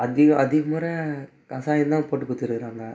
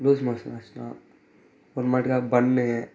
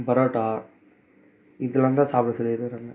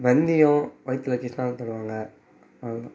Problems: background sounds at intervals